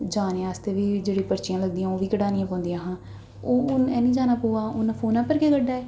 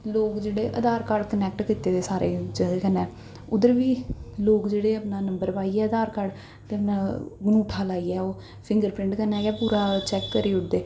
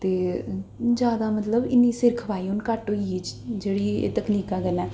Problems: echo